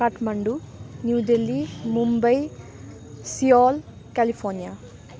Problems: none marked